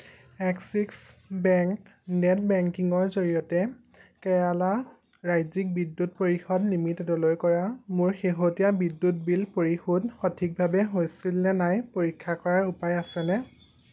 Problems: none marked